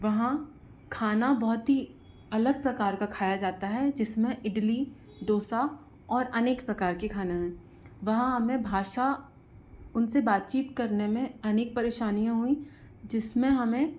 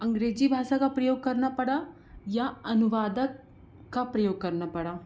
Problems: constant background noise